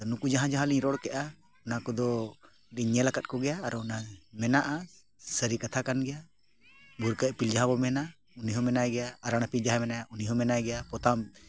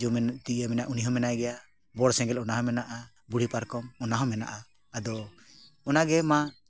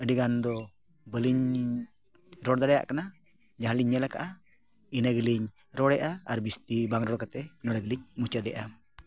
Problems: background sounds at intervals